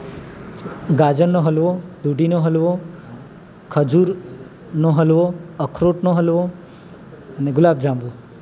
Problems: constant background noise